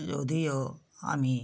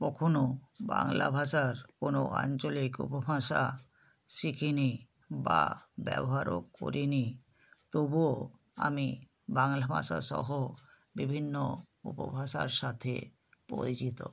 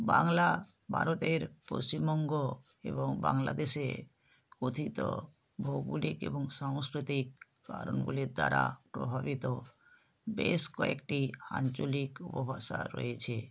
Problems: none marked